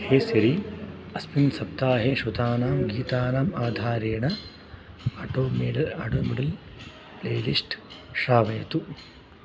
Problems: background sounds at intervals